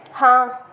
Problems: constant background noise